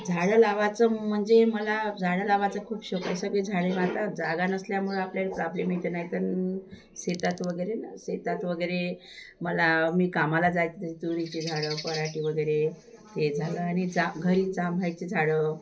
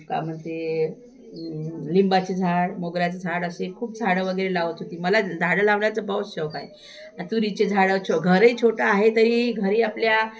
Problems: constant background noise